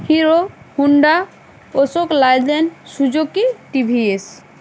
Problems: constant background noise